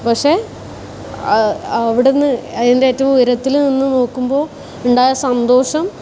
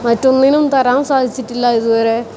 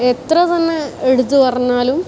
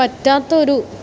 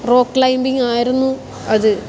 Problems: background sounds at intervals